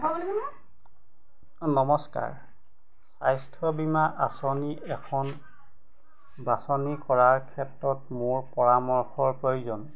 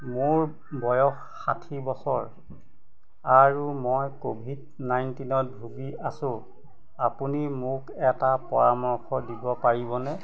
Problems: background sounds at intervals, background conversations at intervals